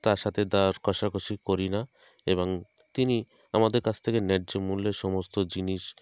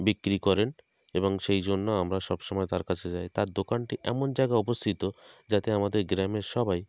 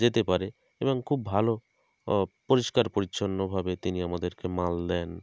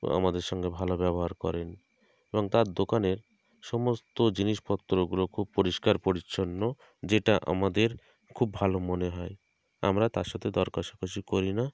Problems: background sounds at intervals